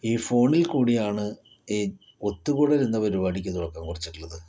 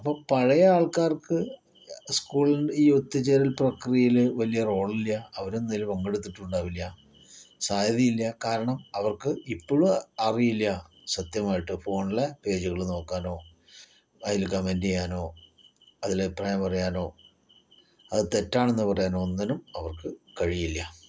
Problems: none marked